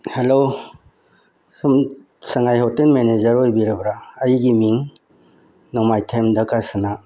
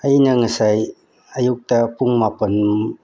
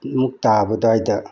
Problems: none marked